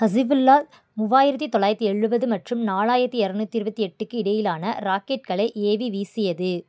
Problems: background conversations at intervals